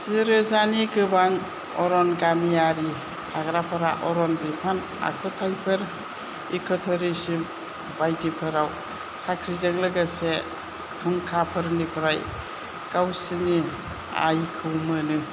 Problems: constant background noise